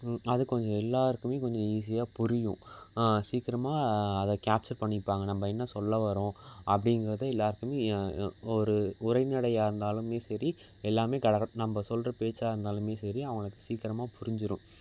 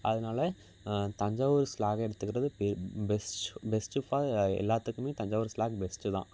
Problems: background sounds at intervals